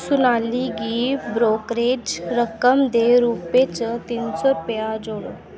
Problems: constant background noise